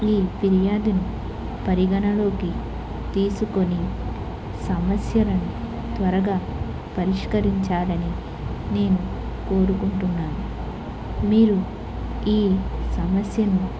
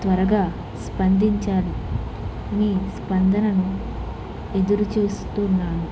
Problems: constant background noise